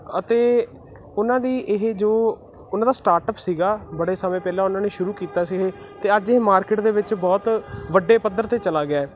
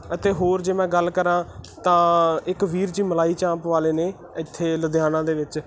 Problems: constant background noise